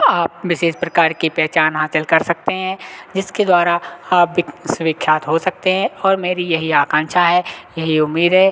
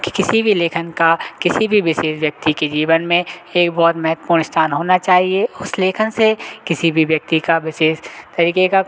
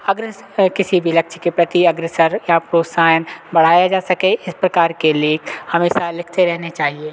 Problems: constant background noise, continuous background conversations